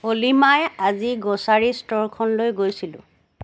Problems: background sounds at intervals